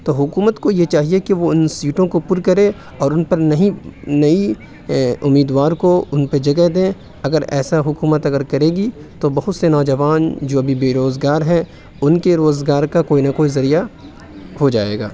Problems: none marked